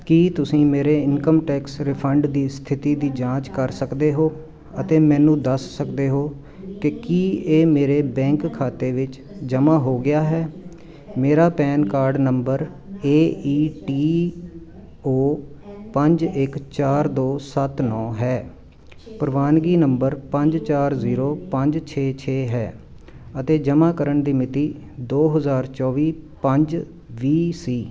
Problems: none marked